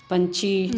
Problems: constant background noise